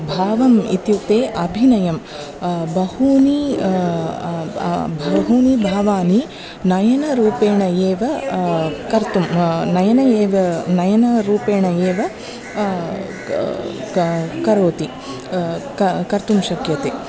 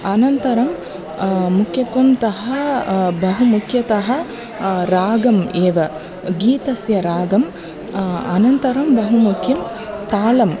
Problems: none marked